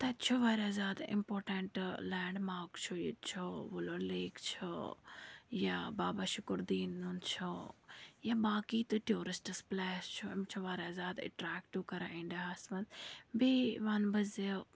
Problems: background sounds at intervals, low volume